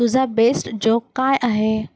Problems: none marked